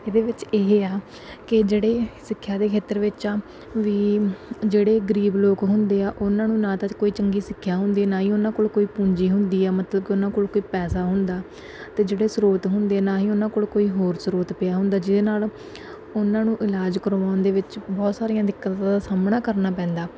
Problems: none marked